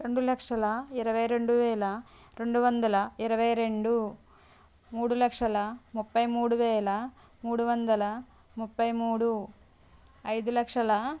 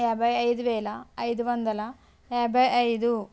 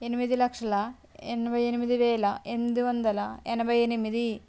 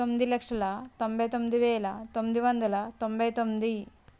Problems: background sounds at intervals